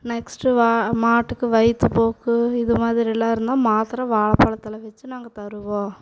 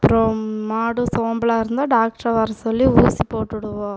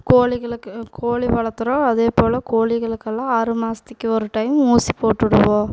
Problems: background sounds at intervals